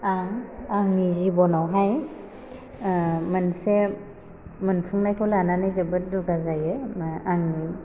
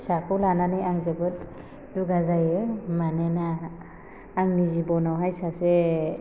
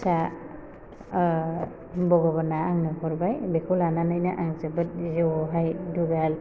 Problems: constant background noise